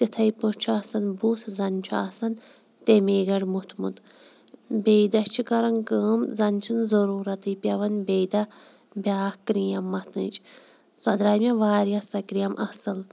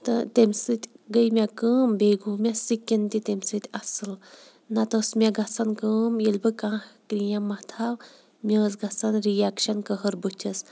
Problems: background sounds at intervals